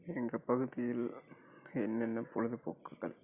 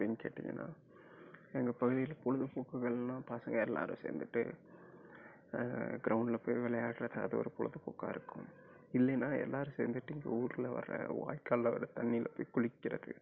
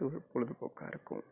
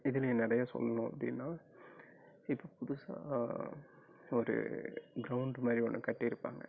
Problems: low volume